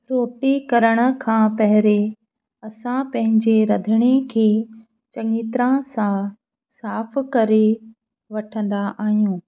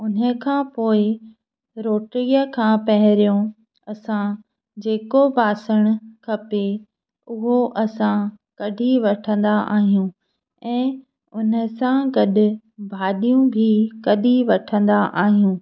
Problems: none marked